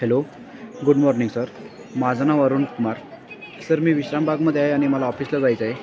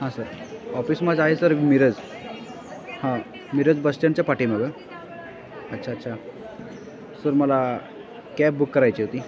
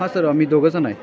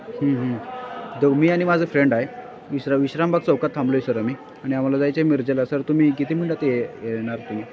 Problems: constant background noise, continuous background conversations